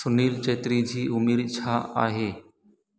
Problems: constant background noise, echo